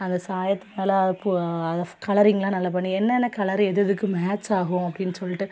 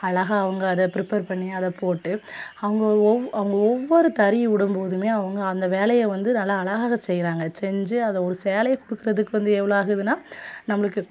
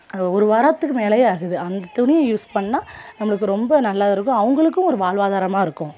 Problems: none marked